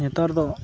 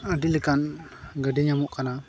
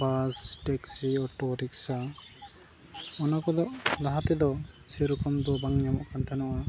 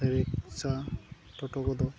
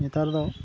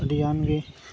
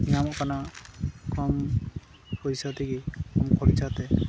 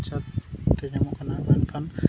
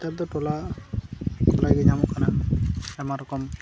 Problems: constant background noise, background conversations at intervals